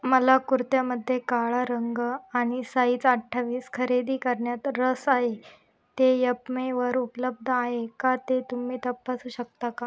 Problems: none marked